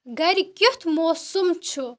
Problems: background sounds at intervals